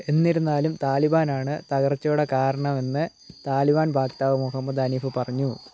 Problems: constant background noise